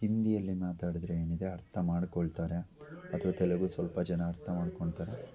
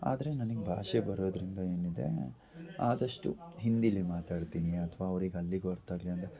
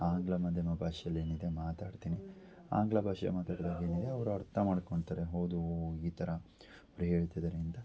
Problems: background sounds at intervals